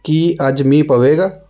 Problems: background sounds at intervals